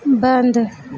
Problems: none marked